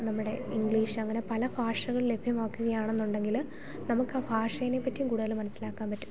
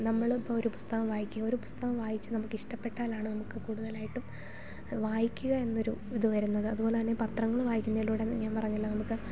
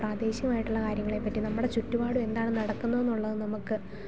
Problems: none marked